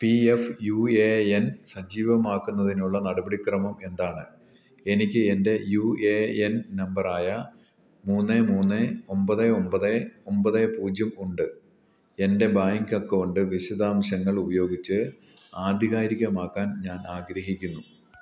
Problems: none marked